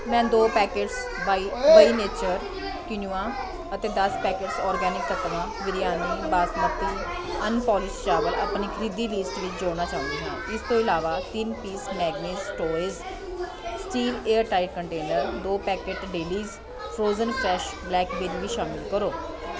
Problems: continuous background conversations